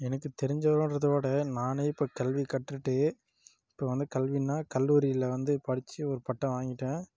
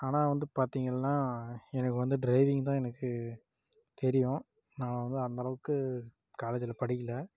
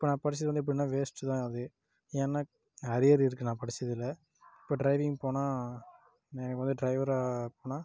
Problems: low volume